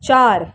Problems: constant background noise